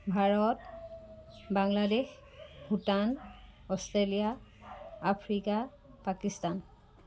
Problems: background sounds at intervals